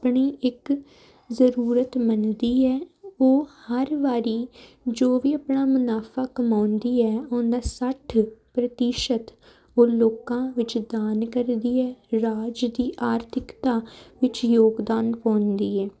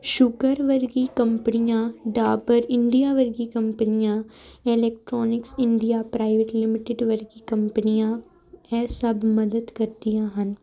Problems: none marked